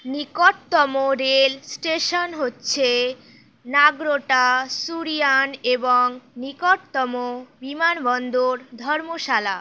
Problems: none marked